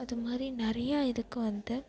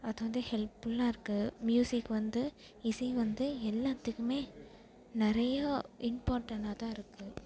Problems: background sounds at intervals